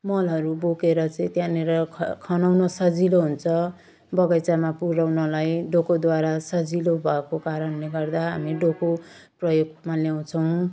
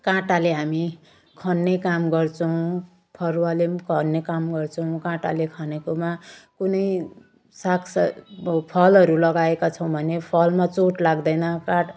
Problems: none marked